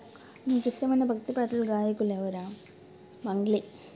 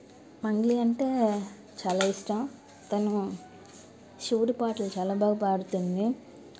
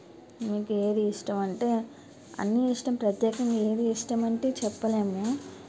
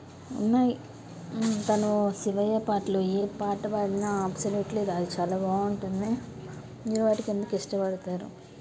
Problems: none marked